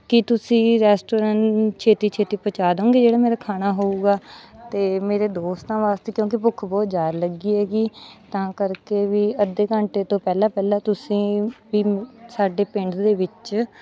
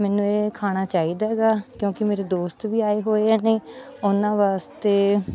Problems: constant background noise, background conversations at intervals